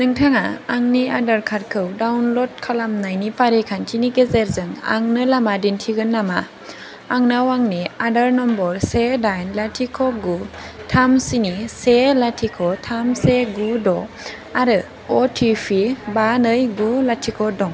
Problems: constant background noise